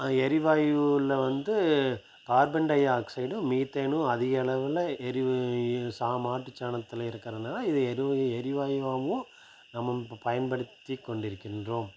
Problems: constant background noise